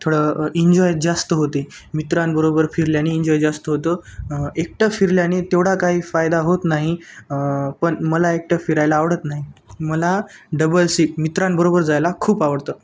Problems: constant background noise